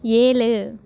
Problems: constant background noise